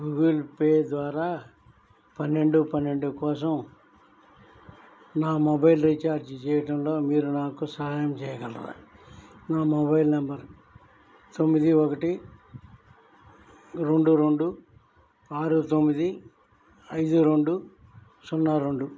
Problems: none marked